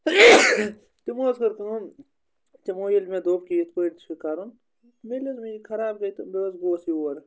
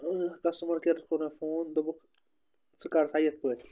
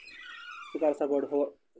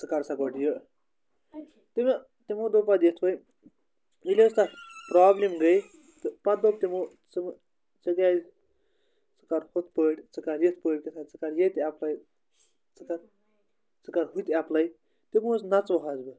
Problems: background conversations at intervals